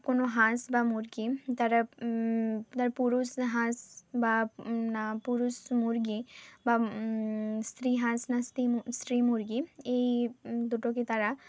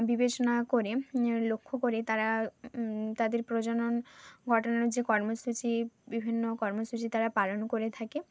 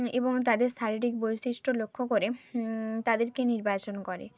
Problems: background sounds at intervals